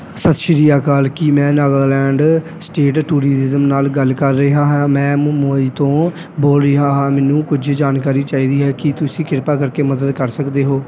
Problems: background sounds at intervals